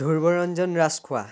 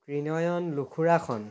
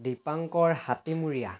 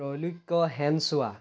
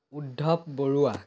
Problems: background sounds at intervals